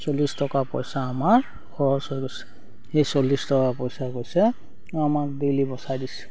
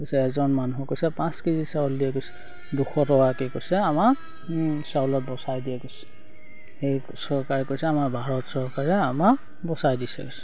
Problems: background sounds at intervals